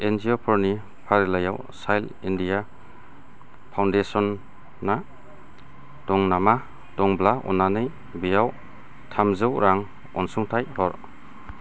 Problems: none marked